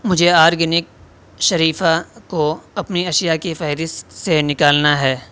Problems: constant background noise